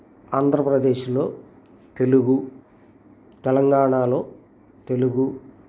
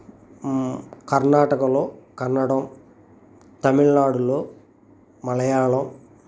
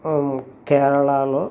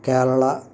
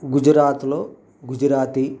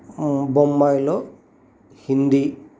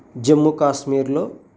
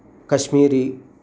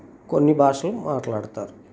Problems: constant background noise